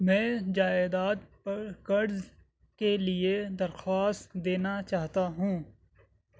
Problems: background sounds at intervals